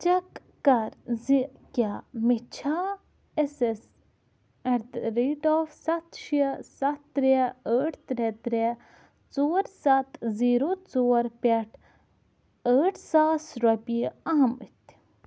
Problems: none marked